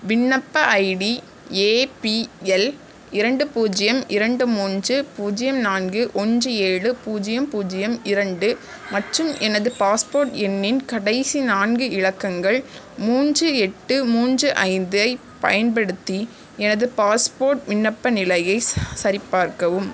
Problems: background sounds at intervals